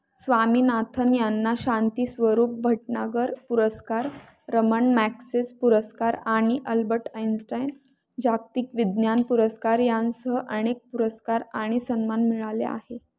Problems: background sounds at intervals